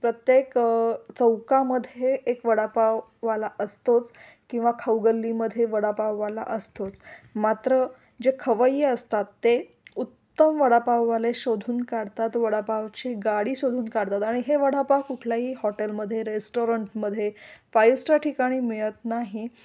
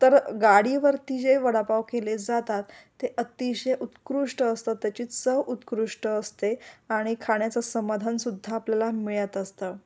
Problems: none marked